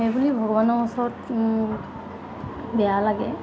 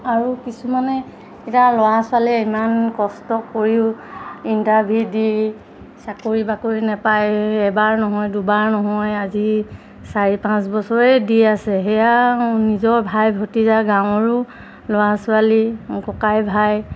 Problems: constant background noise